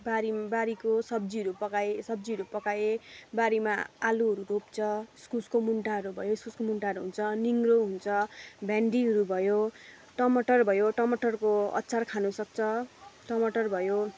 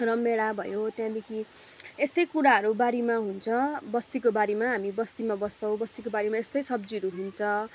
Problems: background sounds at intervals